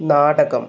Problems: none marked